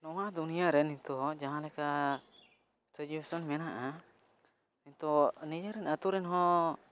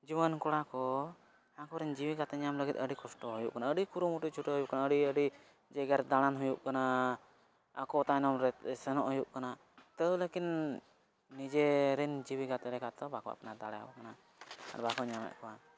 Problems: background sounds at intervals, low volume